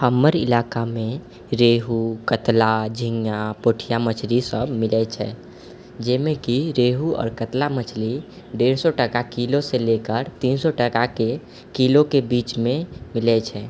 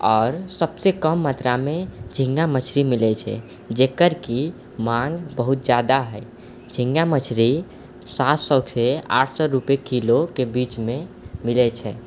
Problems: none marked